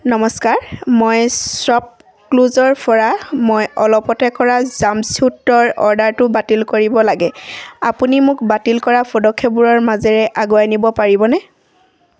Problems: none marked